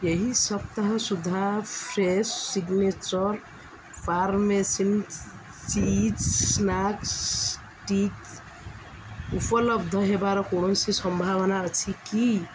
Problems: constant background noise